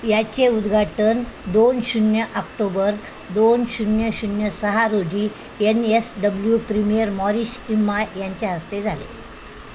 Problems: constant background noise